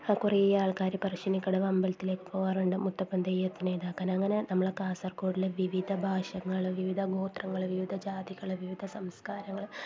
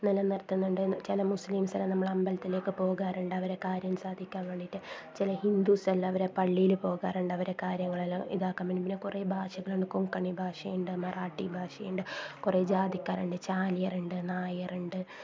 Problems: constant background noise, low volume